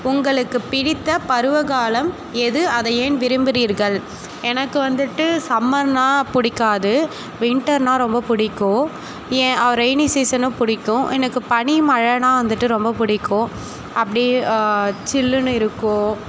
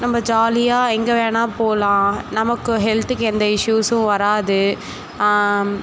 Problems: constant background noise